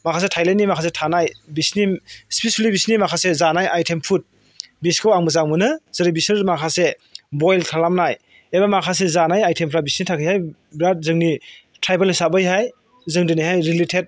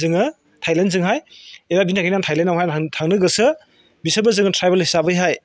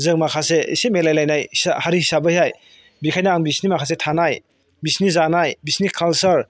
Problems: none marked